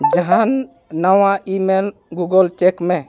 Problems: continuous background conversations